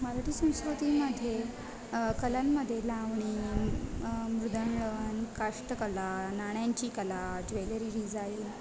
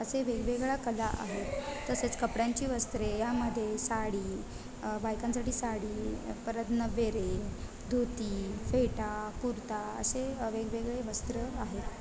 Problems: constant background noise, continuous background conversations